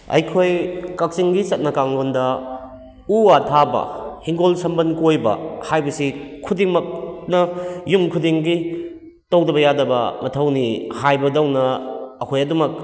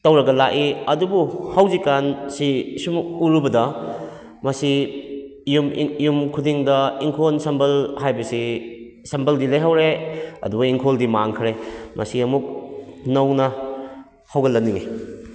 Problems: echo